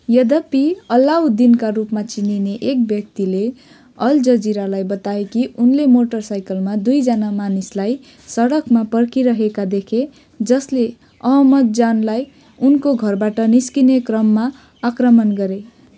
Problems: constant background noise